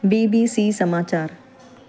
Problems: constant background noise